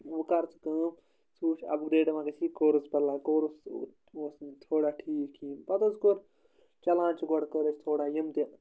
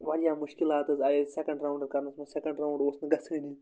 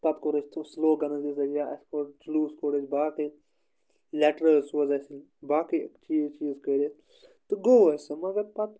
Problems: none marked